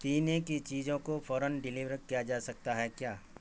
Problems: constant background noise